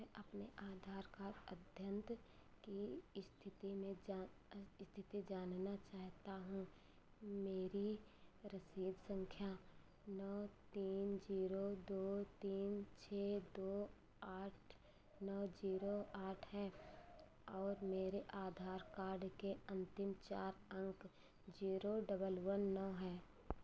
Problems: constant background noise